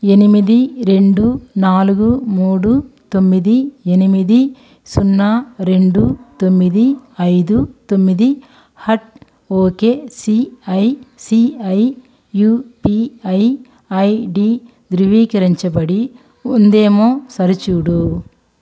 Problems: background sounds at intervals